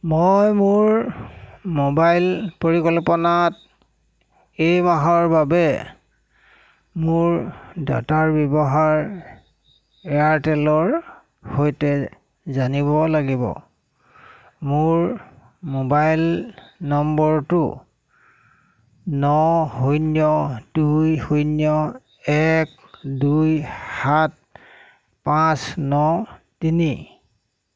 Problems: constant background noise